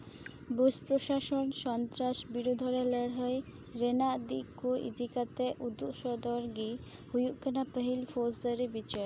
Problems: none marked